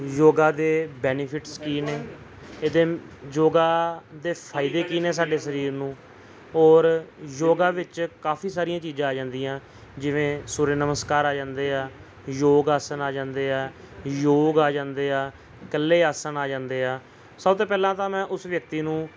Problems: background sounds at intervals, background conversations at intervals